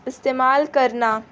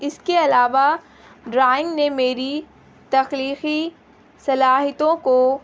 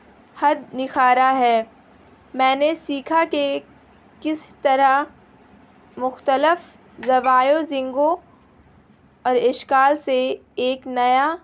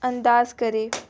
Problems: constant background noise